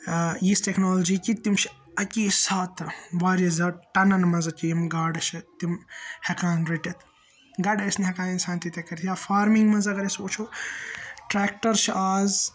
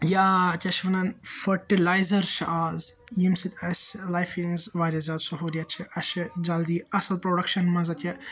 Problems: constant background noise